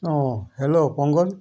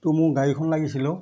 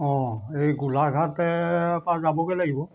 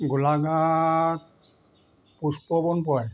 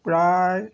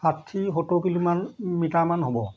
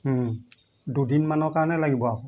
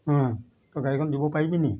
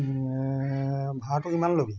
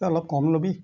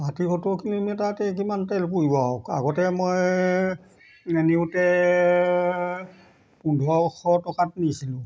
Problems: background sounds at intervals